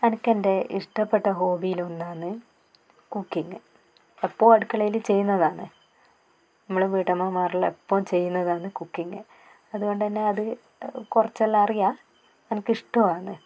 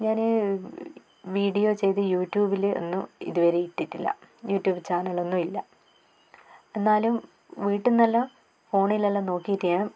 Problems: none marked